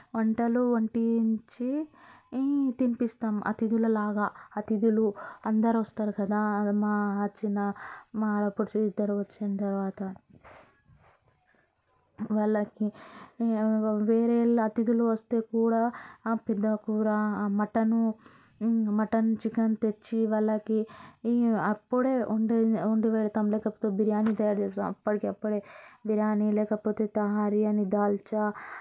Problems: constant background noise, background conversations at intervals